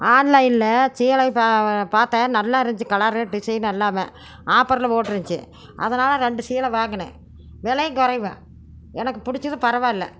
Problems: background sounds at intervals